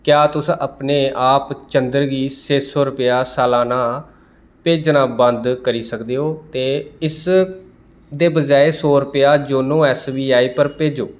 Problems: constant background noise